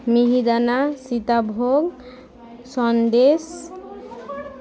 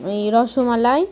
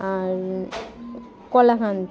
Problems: constant background noise, continuous background conversations